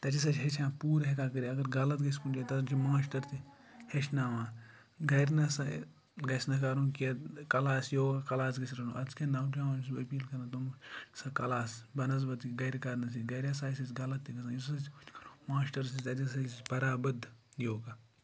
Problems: low volume